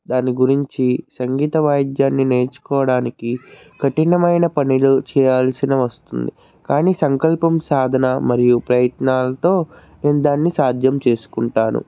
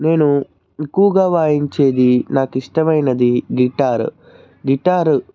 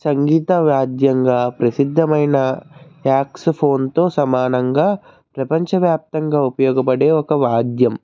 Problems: none marked